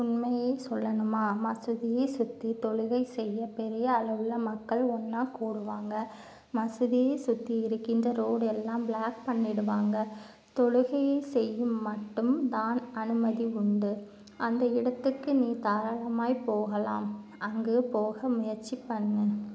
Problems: none marked